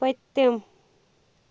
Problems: background sounds at intervals